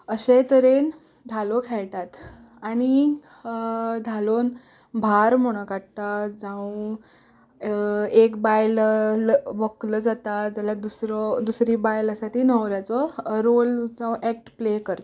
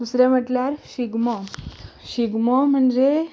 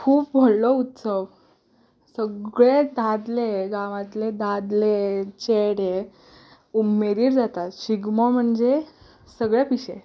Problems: background sounds at intervals